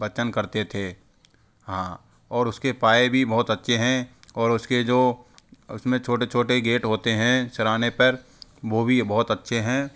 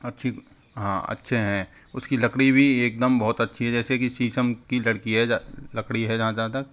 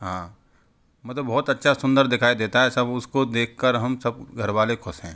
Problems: constant background noise